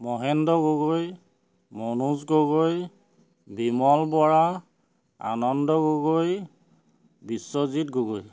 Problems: none marked